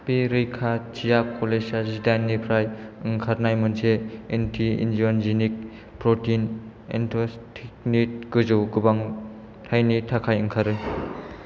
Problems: none marked